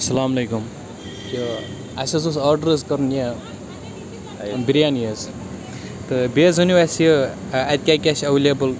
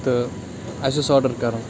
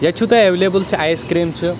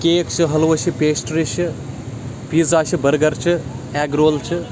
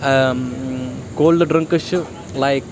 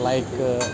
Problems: constant background noise